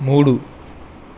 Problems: none marked